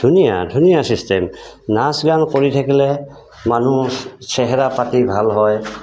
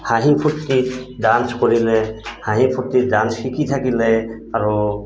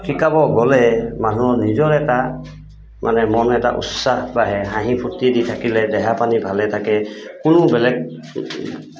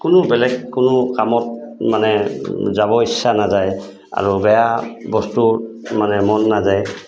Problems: constant background noise